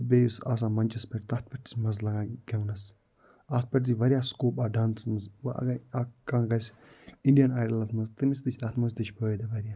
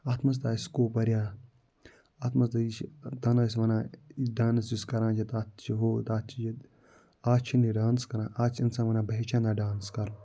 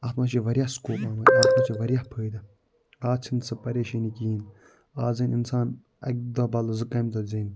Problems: none marked